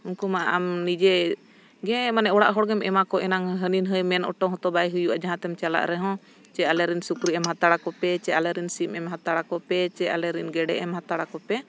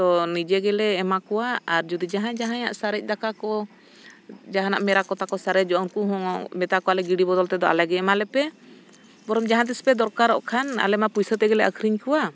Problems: none marked